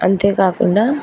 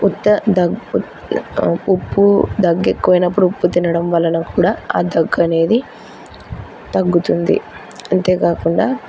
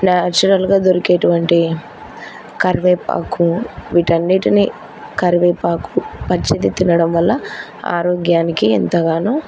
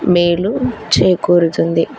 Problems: none marked